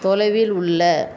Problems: none marked